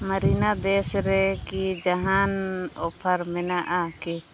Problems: constant background noise